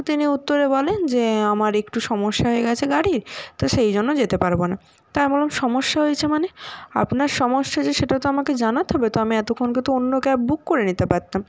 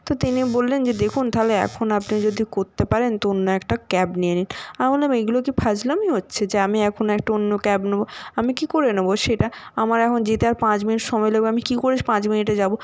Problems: none marked